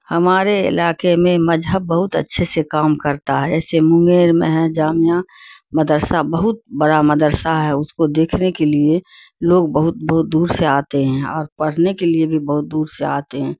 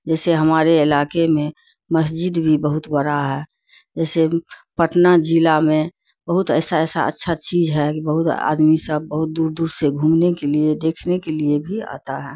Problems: constant background noise